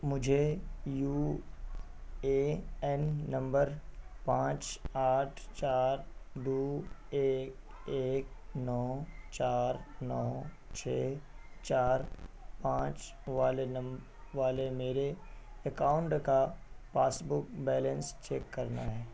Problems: constant background noise